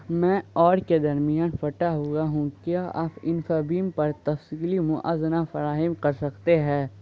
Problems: constant background noise